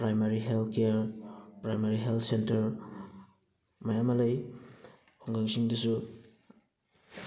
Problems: background sounds at intervals, background conversations at intervals